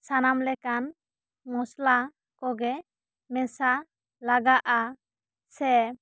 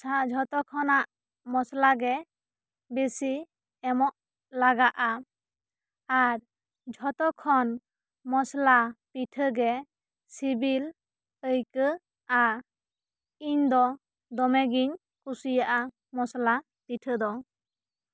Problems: none marked